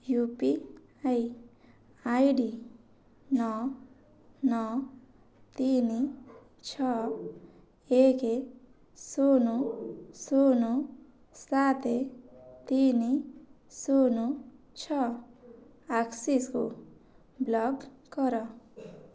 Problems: none marked